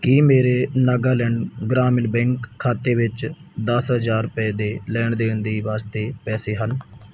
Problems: background sounds at intervals